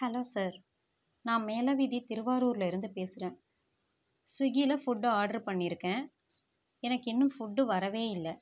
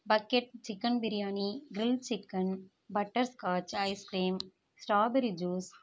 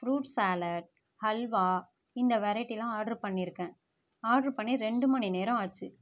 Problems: none marked